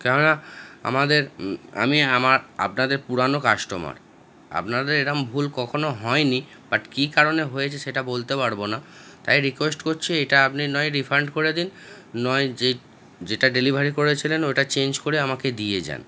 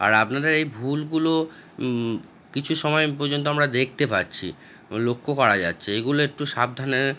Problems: background sounds at intervals, background conversations at intervals